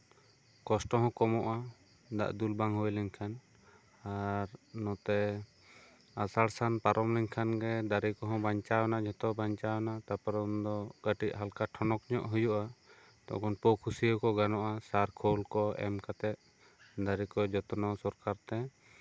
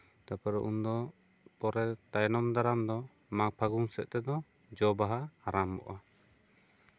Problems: constant background noise